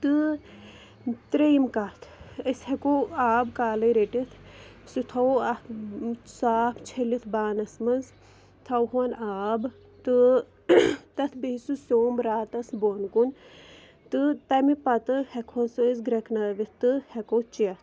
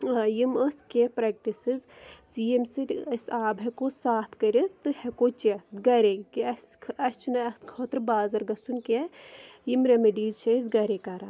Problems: none marked